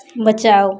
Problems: background sounds at intervals